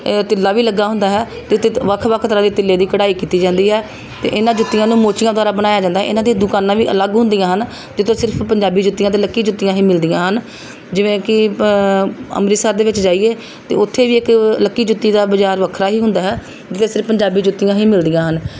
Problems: background sounds at intervals